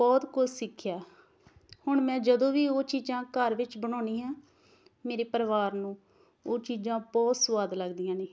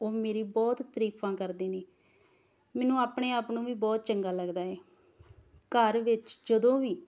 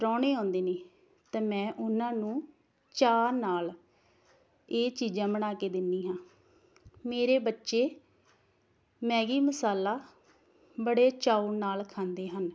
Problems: none marked